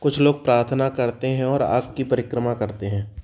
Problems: background sounds at intervals